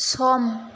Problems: none marked